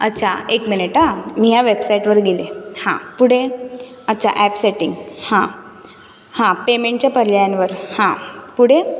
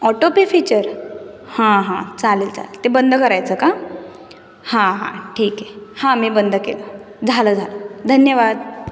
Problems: none marked